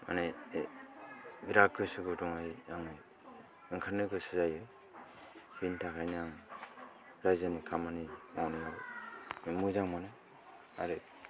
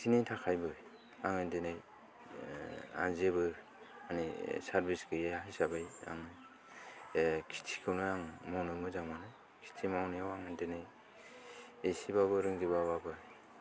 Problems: background sounds at intervals